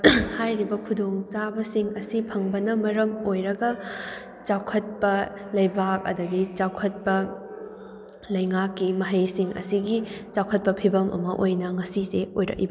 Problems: background sounds at intervals